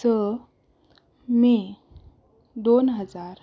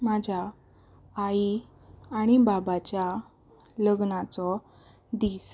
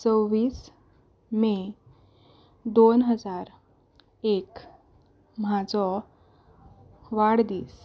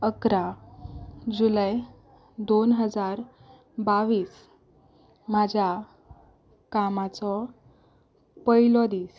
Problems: none marked